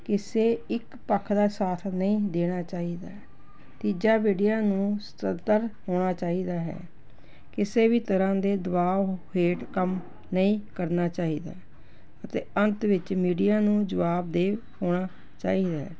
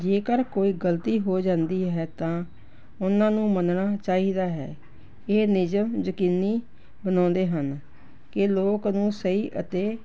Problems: background sounds at intervals